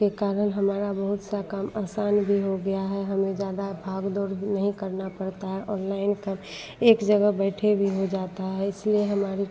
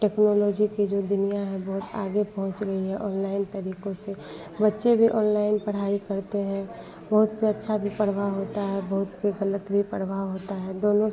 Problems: background sounds at intervals